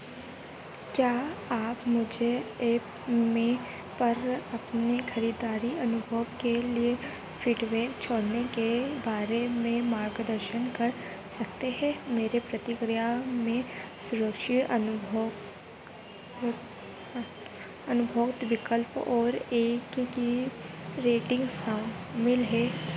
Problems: constant background noise